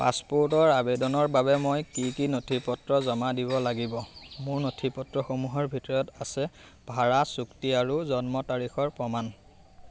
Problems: constant background noise